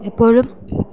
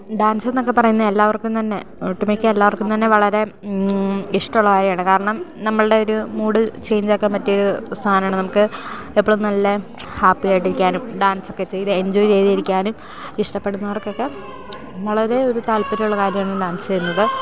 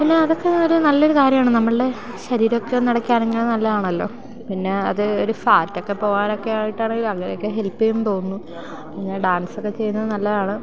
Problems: constant background noise